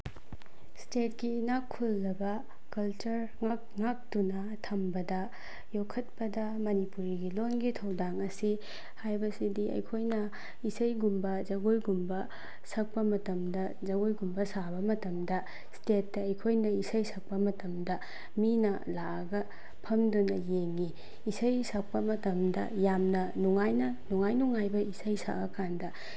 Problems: background sounds at intervals